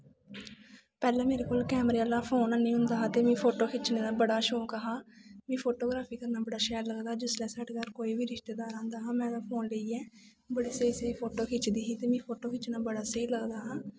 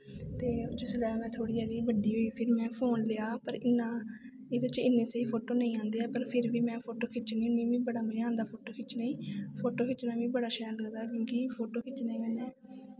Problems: background sounds at intervals